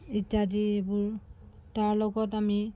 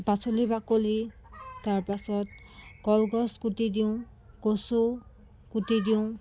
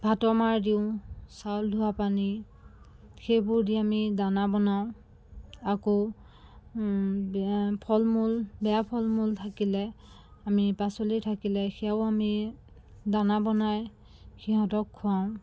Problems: constant background noise, background conversations at intervals